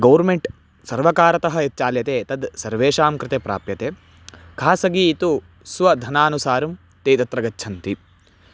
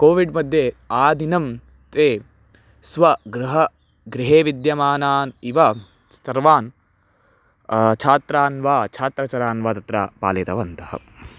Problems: background sounds at intervals